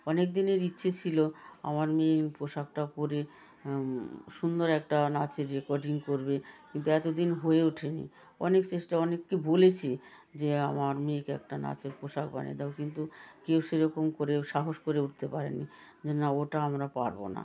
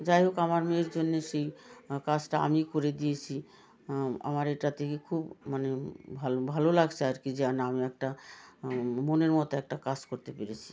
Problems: continuous background conversations